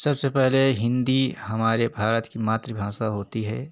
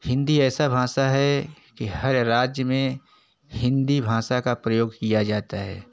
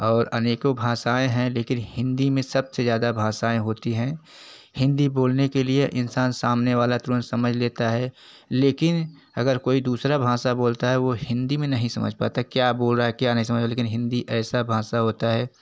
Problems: constant background noise